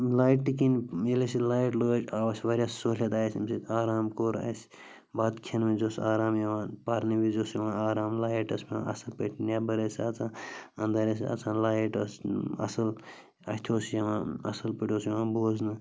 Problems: constant background noise